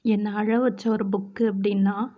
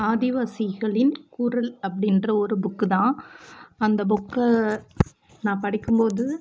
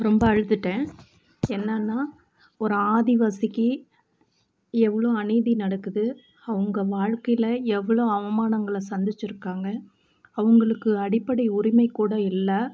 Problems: none marked